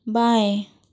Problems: none marked